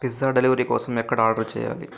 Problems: constant background noise